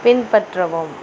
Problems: constant background noise